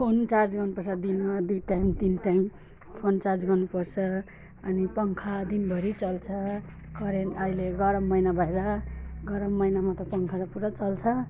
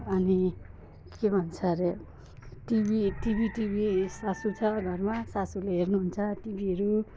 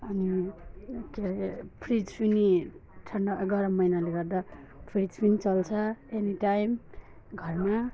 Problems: none marked